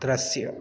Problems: constant background noise